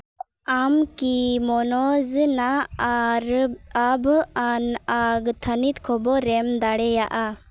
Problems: background sounds at intervals